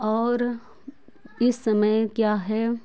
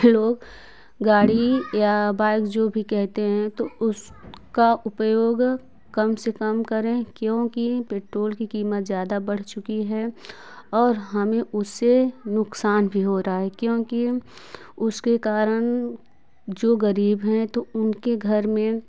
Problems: constant background noise